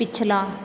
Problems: constant background noise